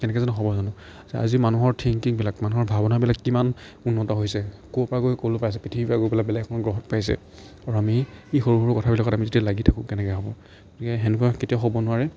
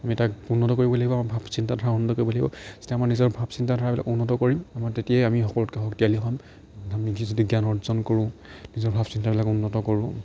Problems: none marked